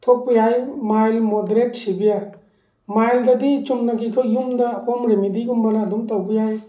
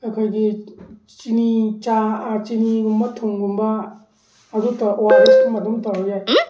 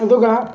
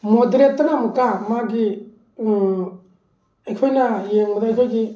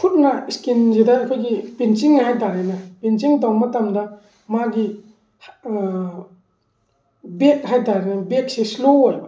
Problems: background sounds at intervals